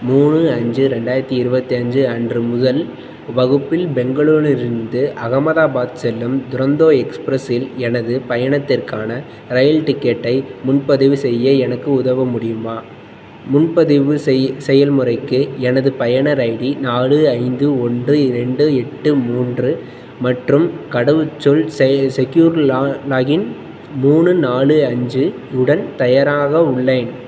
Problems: none marked